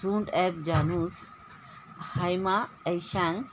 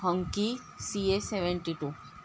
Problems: constant background noise